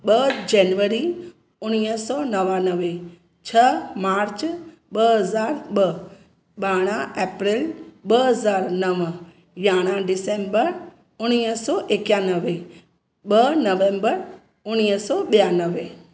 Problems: none marked